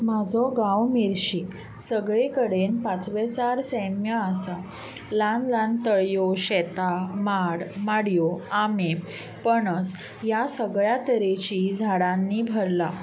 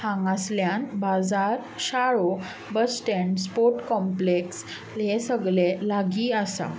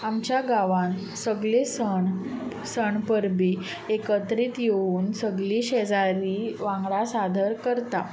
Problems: none marked